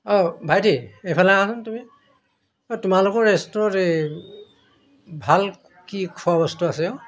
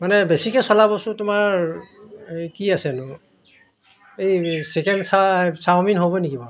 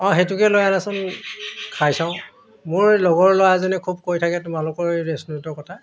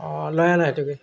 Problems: background sounds at intervals